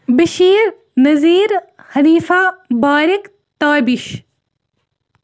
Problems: none marked